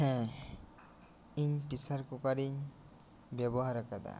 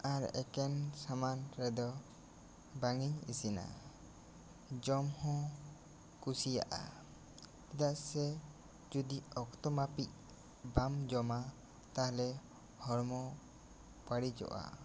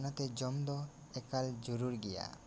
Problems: constant background noise